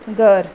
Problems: constant background noise